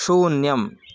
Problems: background sounds at intervals